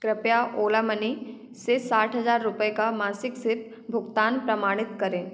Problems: echo